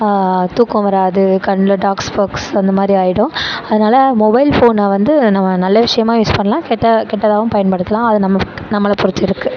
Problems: constant background noise